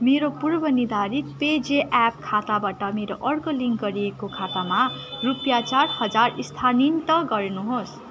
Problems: constant background noise